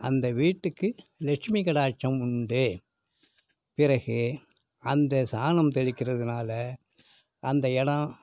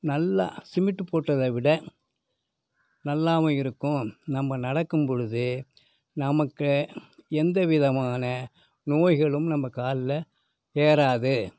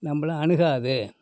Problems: none marked